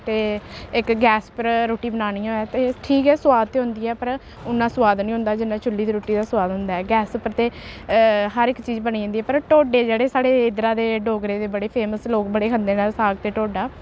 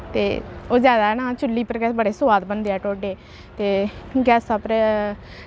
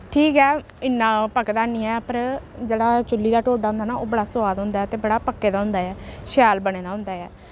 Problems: constant background noise